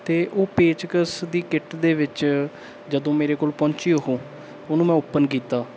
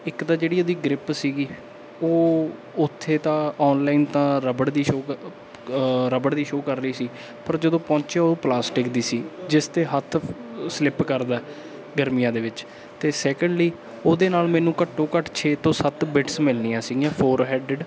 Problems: background sounds at intervals